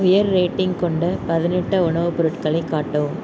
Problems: background sounds at intervals